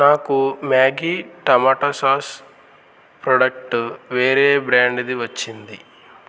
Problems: constant background noise